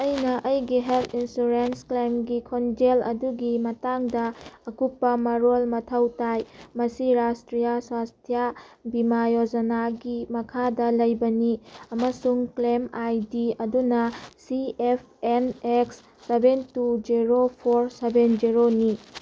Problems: none marked